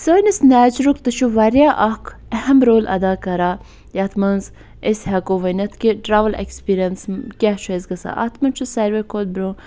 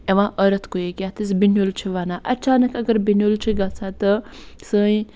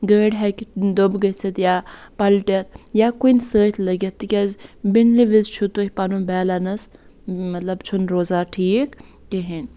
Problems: none marked